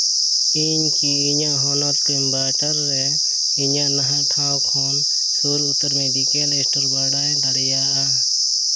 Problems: constant background noise